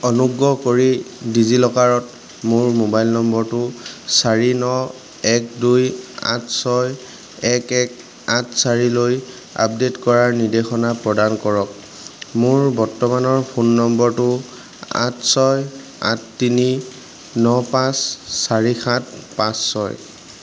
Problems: none marked